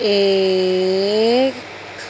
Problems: constant background noise